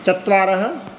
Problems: none marked